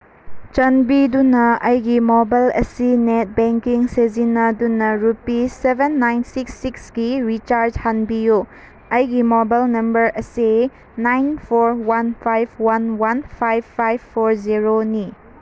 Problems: none marked